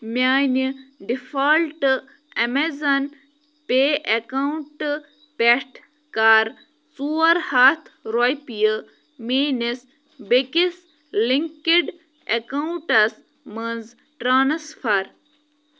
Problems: none marked